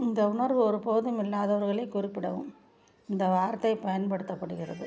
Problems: background sounds at intervals